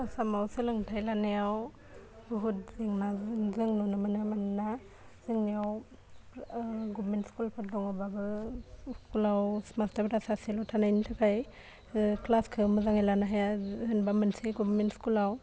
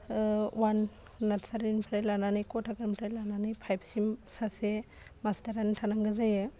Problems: low volume